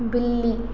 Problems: constant background noise, echo